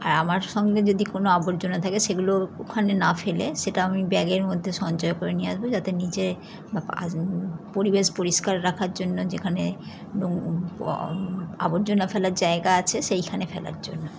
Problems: none marked